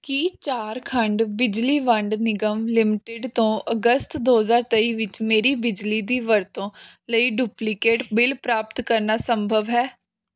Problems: none marked